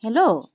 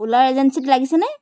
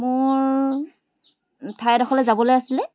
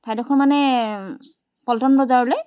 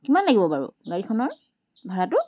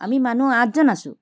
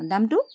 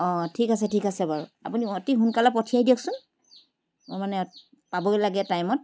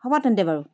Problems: constant background noise